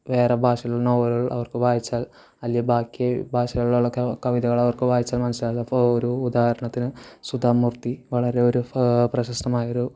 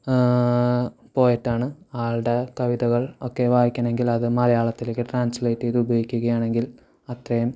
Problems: constant background noise